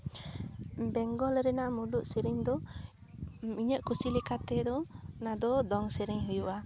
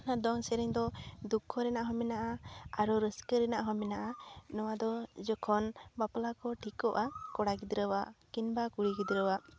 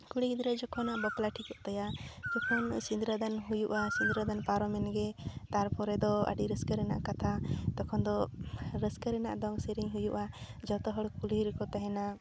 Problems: constant background noise